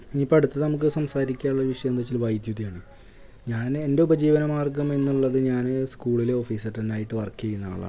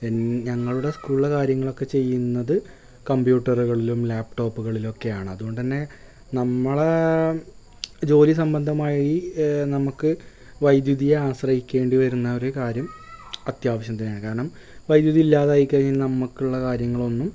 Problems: none marked